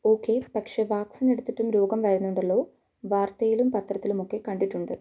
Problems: low volume